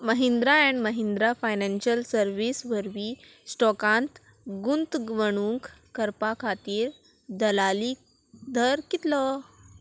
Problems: constant background noise